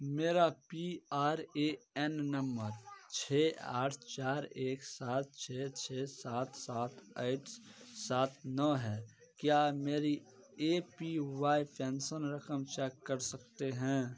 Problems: background sounds at intervals, continuous background conversations